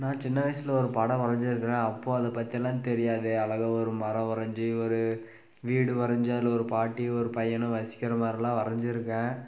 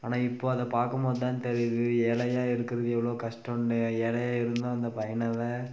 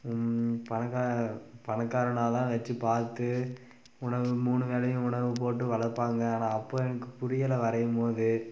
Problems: constant background noise